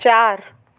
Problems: constant background noise, echo